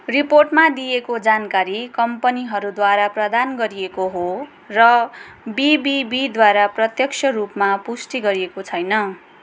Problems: none marked